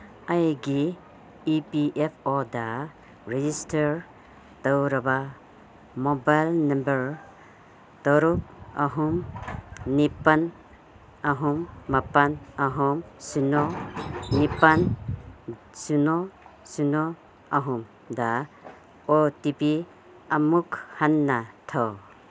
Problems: constant background noise